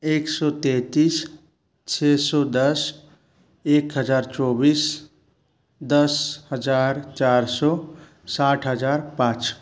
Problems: constant background noise